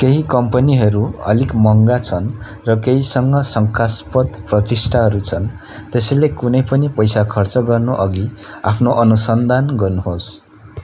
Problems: none marked